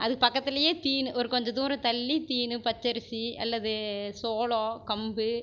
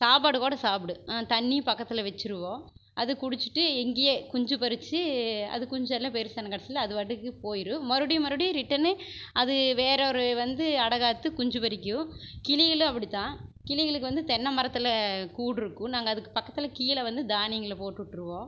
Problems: constant background noise